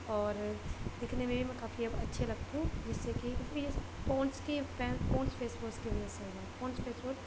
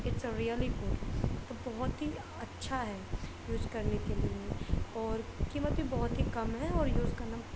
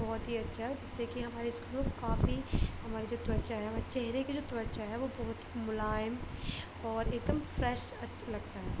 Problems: constant background noise, low volume